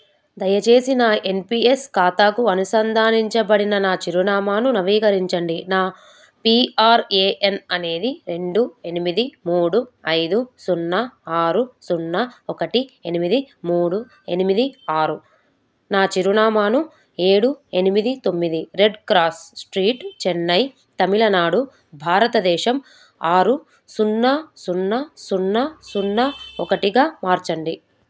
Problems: background sounds at intervals